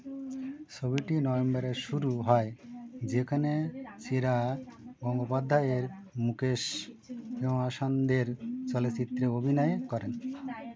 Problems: none marked